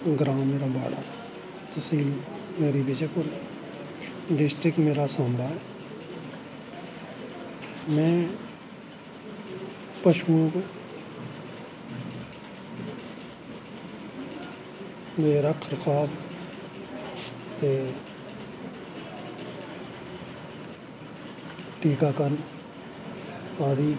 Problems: constant background noise, echo